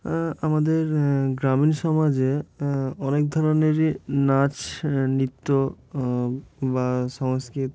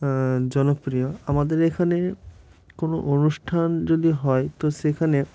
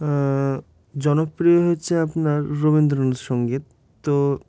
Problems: none marked